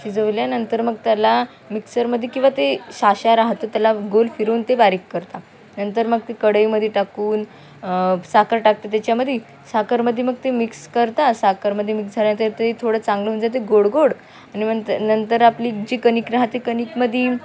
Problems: background conversations at intervals